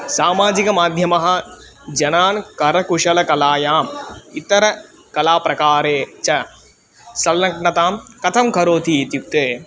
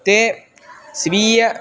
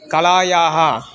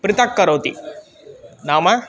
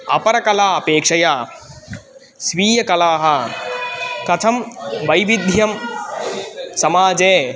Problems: constant background noise